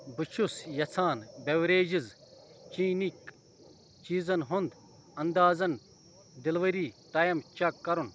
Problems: constant background noise